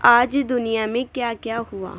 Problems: constant background noise